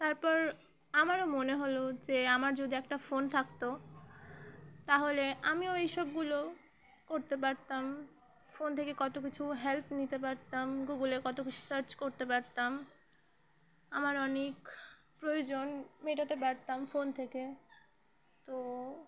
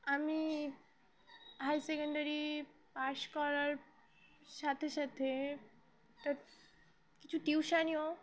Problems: none marked